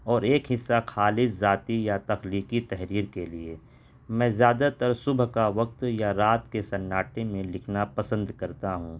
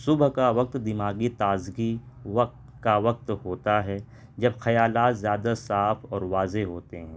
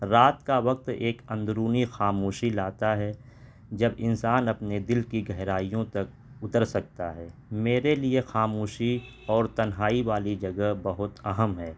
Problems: constant background noise